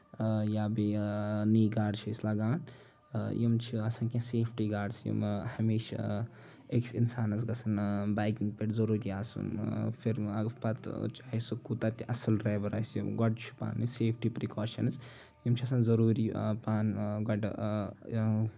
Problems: none marked